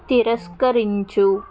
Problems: constant background noise